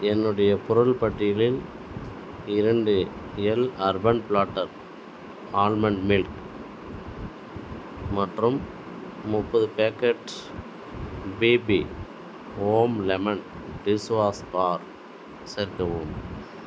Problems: background sounds at intervals